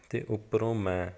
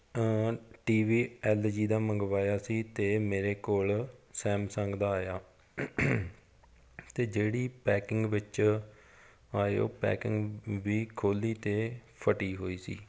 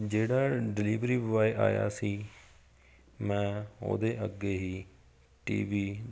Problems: background sounds at intervals